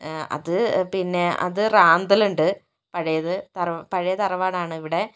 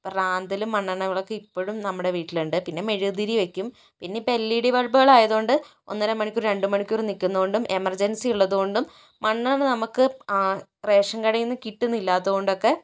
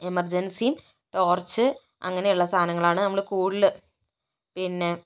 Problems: none marked